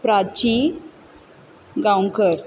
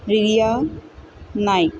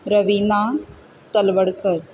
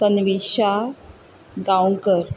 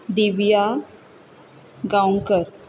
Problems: background sounds at intervals